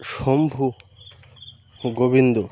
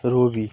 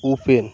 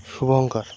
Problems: constant background noise